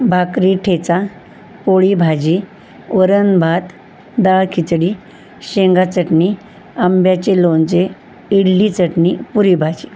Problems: constant background noise